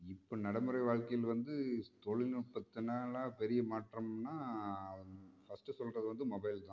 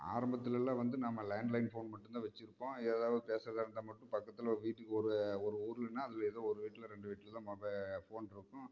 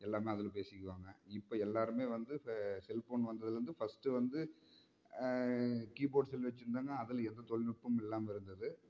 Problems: low volume